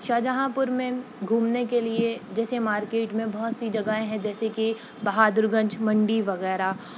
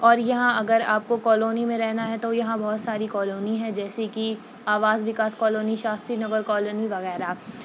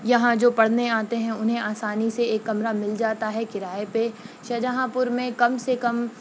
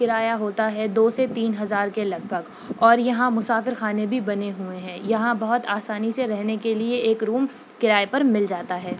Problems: background sounds at intervals